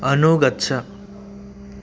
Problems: constant background noise